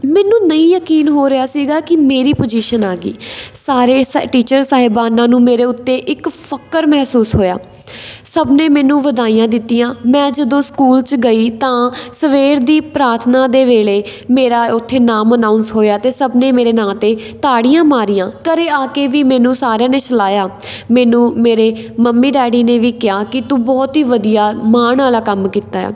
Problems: constant background noise